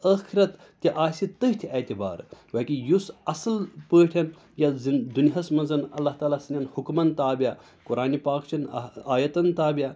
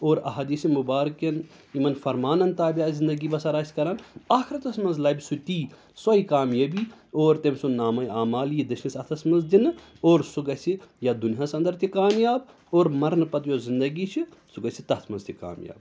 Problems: none marked